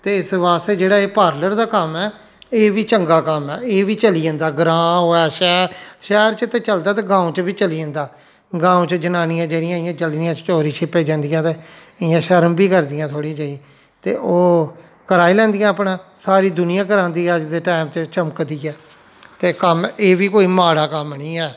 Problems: none marked